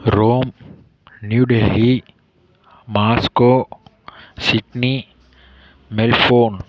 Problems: none marked